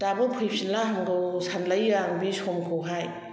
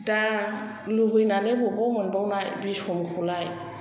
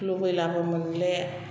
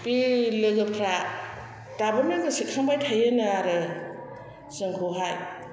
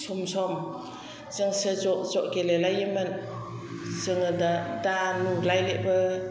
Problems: constant background noise